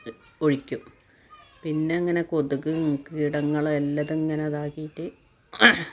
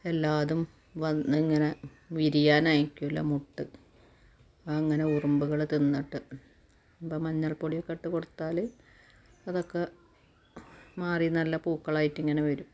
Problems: background sounds at intervals